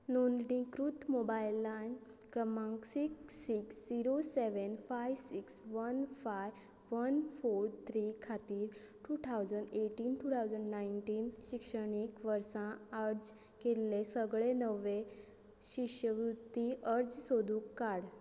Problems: none marked